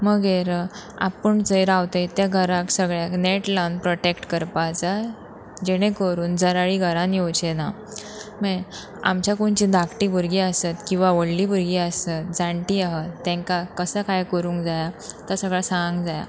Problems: constant background noise